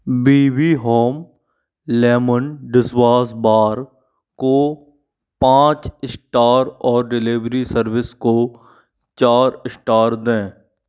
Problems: background sounds at intervals